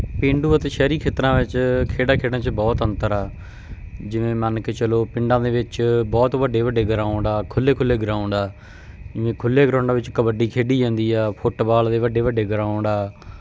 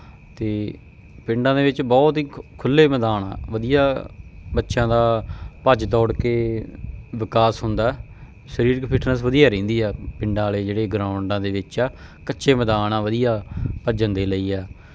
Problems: none marked